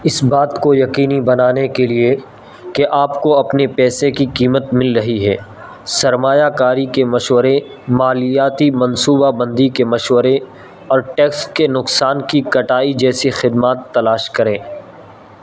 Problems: constant background noise